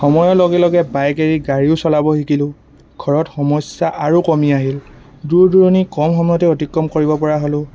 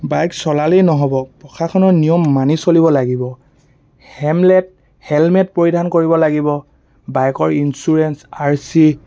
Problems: constant background noise